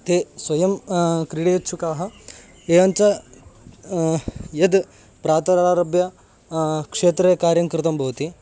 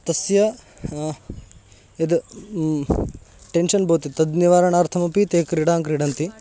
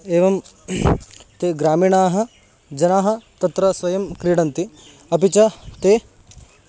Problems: background sounds at intervals